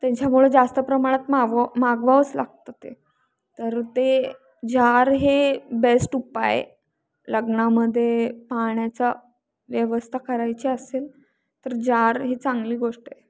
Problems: constant background noise